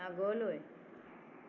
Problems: constant background noise